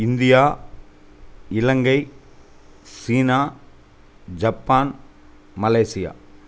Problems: none marked